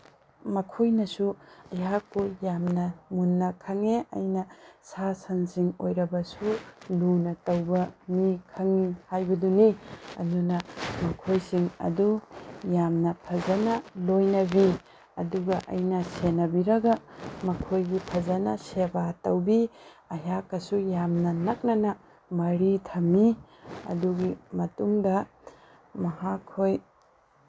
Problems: constant background noise